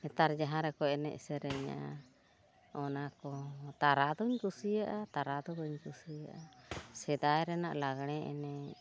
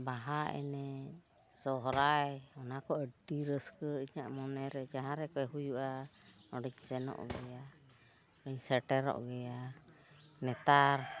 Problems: background sounds at intervals